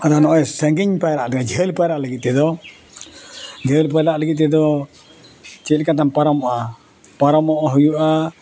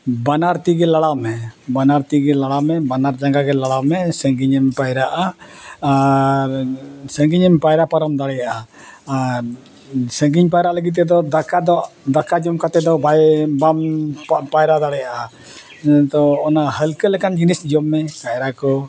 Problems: background sounds at intervals